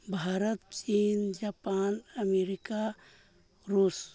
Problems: low volume